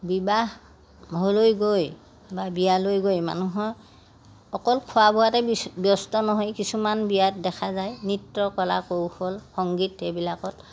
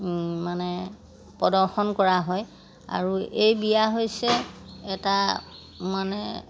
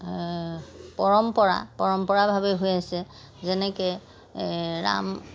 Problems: background sounds at intervals